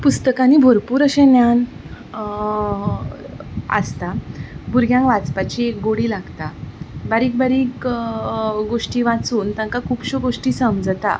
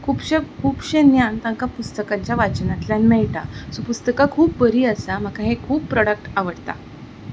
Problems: none marked